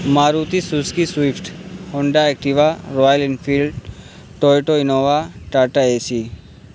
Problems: constant background noise